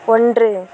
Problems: constant background noise